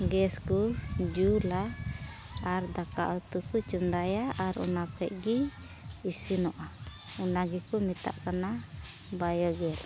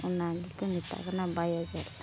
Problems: constant background noise